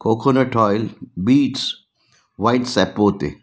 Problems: none marked